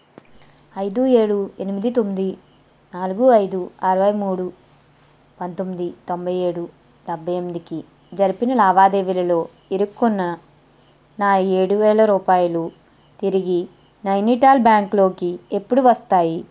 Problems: none marked